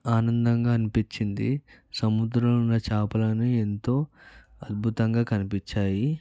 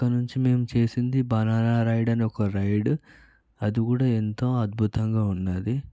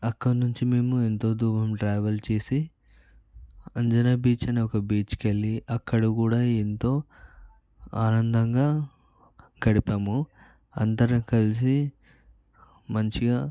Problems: background conversations at intervals, low volume